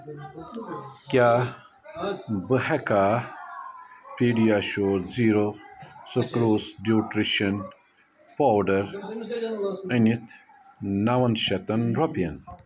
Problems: continuous background conversations